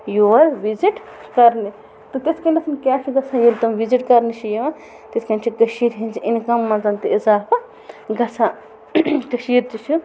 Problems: constant background noise